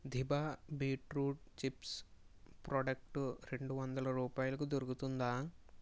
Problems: low volume